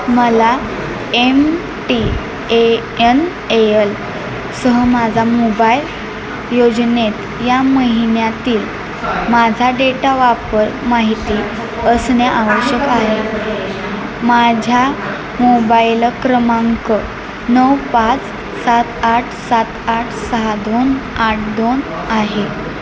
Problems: constant background noise, continuous background conversations